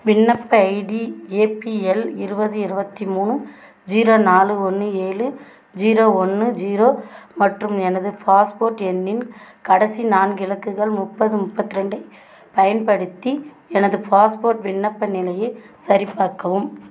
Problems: none marked